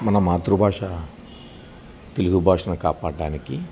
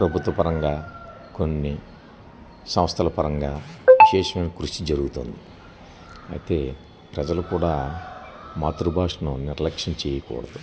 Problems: none marked